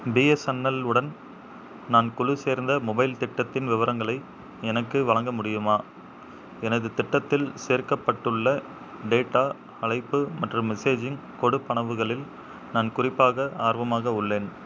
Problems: background sounds at intervals